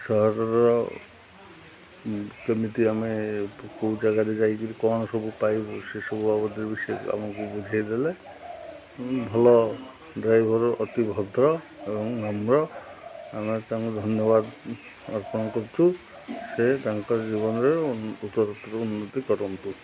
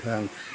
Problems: none marked